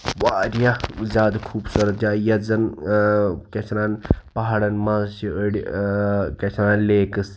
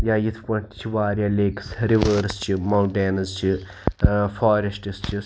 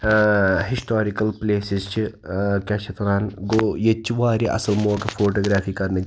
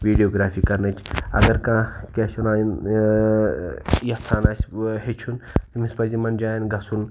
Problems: background sounds at intervals